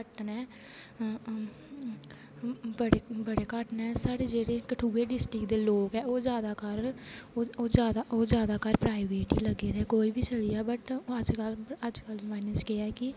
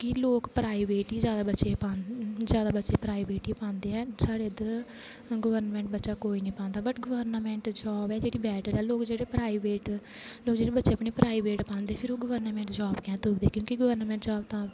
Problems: constant background noise